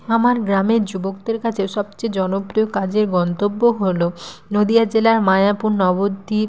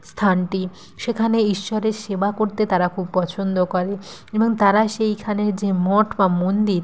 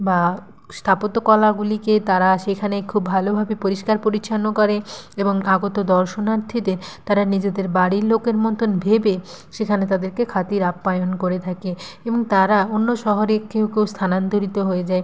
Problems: none marked